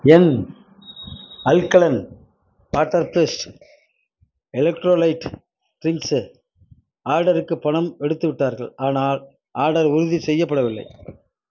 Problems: none marked